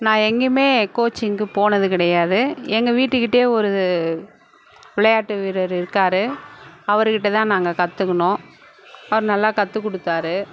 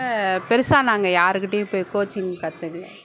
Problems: constant background noise